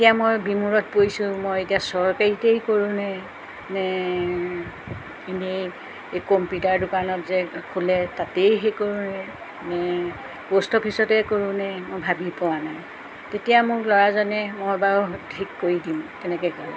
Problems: none marked